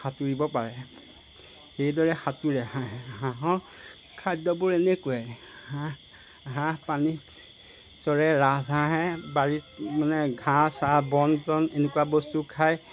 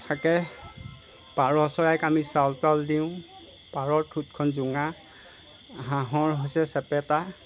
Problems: background sounds at intervals